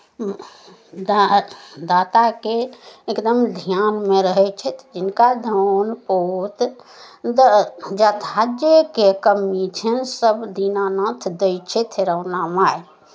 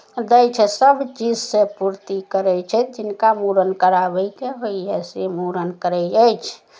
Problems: none marked